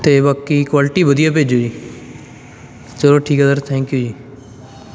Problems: background sounds at intervals, background conversations at intervals